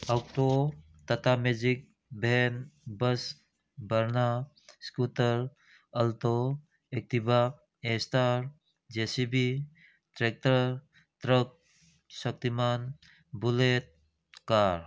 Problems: none marked